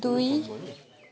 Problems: background sounds at intervals